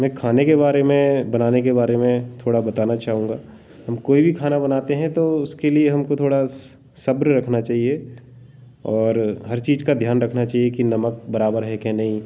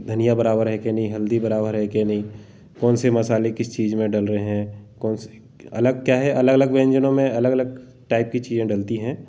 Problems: none marked